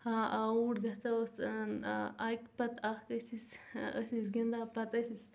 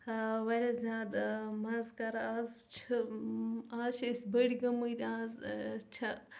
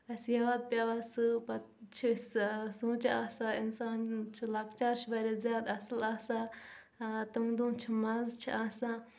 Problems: background sounds at intervals, low volume